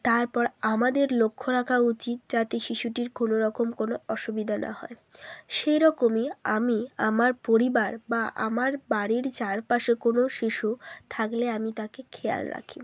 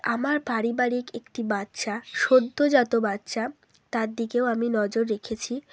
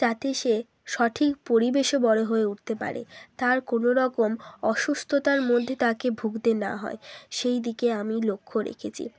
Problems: constant background noise